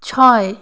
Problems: constant background noise